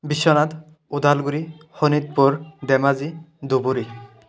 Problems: background sounds at intervals